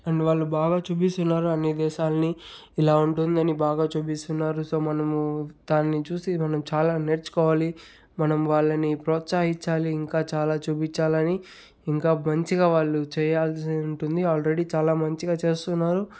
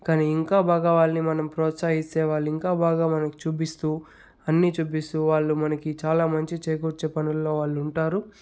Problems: background sounds at intervals